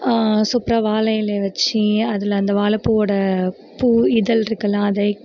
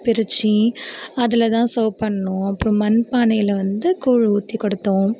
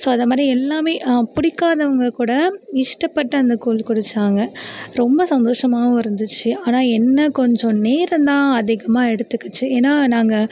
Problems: continuous background conversations